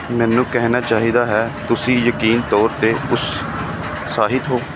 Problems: constant background noise